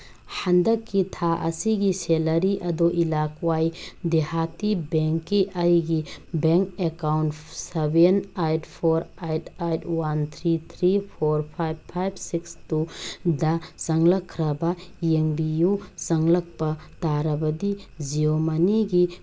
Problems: background sounds at intervals